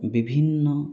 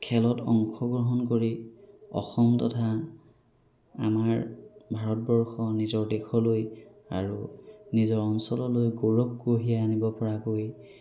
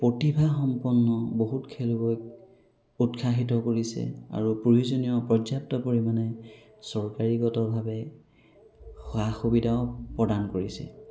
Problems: background sounds at intervals